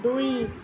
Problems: none marked